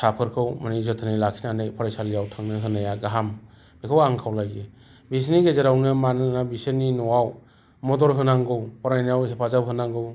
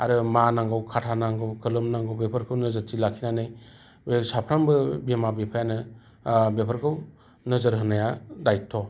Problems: none marked